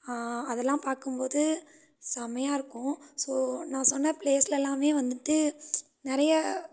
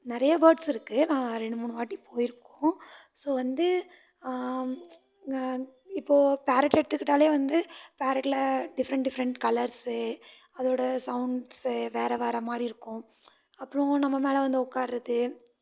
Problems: background sounds at intervals